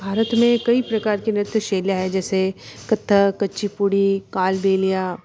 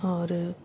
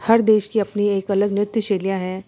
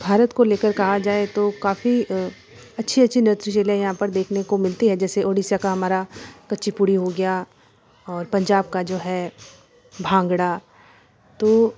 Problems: constant background noise